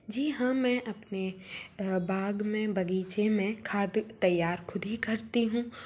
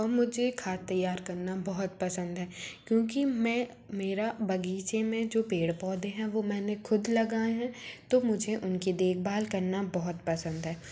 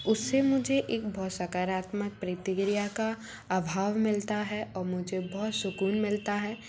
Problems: none marked